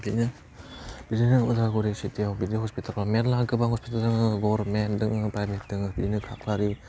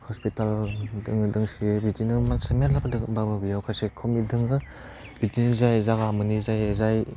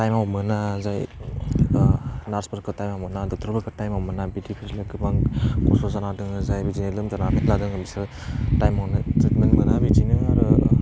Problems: low volume